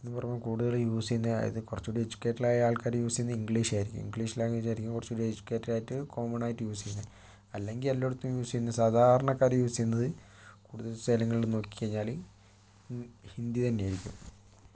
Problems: low volume